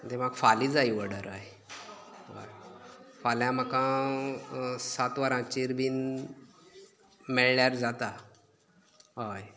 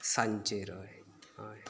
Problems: none marked